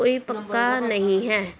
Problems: background conversations at intervals